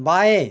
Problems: constant background noise